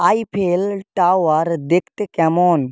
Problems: none marked